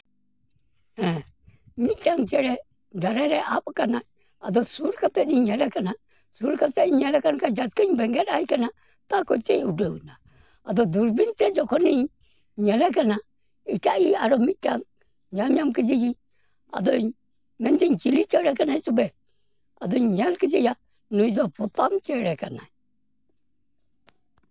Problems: none marked